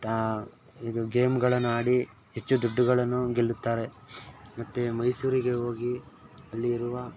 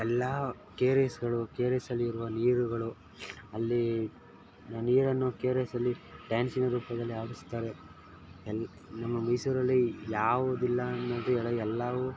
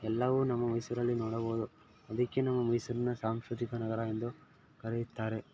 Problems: background sounds at intervals